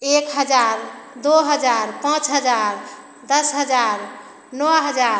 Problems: none marked